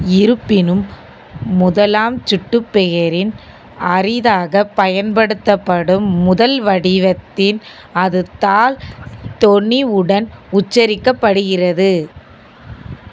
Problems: none marked